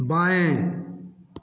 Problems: echo